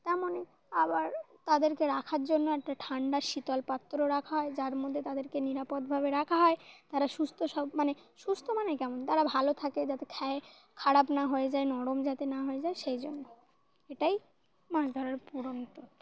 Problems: constant background noise